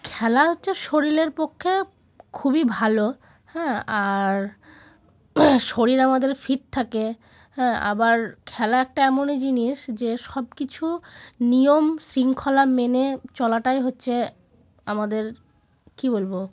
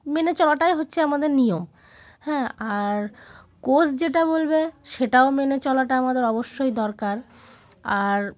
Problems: background sounds at intervals